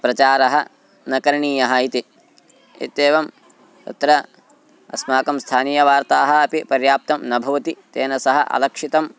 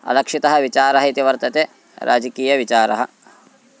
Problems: constant background noise, continuous background conversations